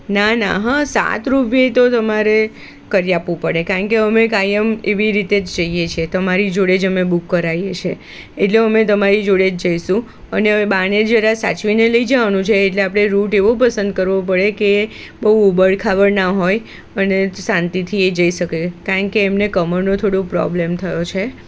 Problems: constant background noise